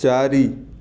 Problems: none marked